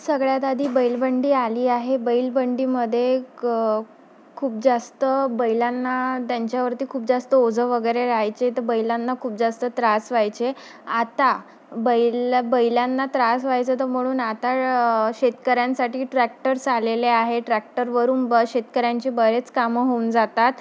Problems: none marked